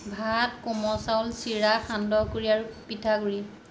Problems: none marked